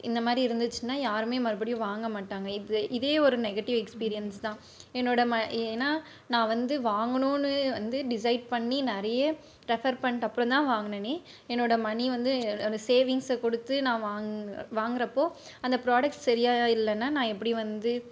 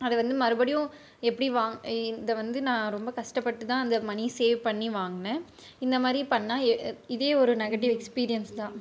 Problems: none marked